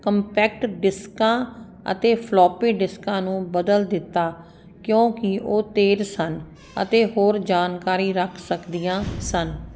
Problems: constant background noise